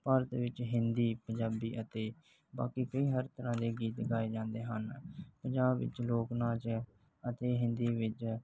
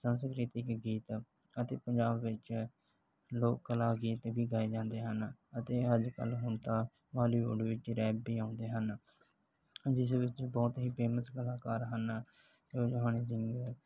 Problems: background sounds at intervals